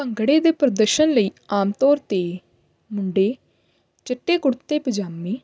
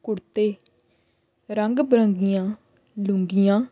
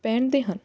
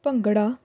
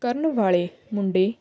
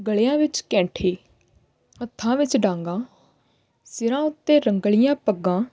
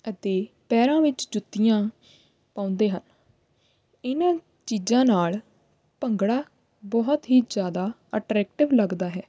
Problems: constant background noise